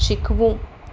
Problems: constant background noise